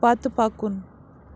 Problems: background sounds at intervals